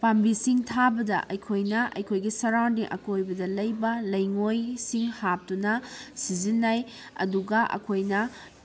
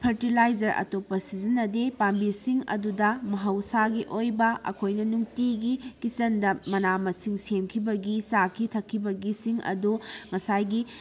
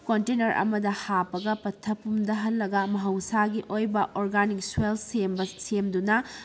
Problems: none marked